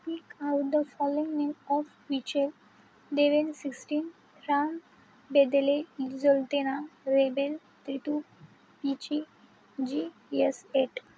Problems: constant background noise